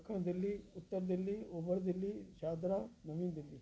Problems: constant background noise